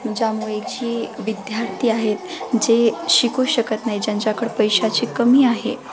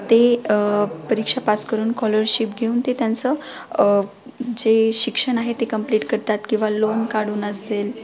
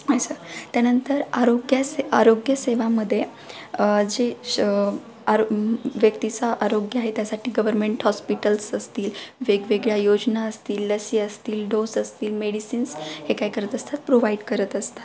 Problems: background sounds at intervals, continuous background conversations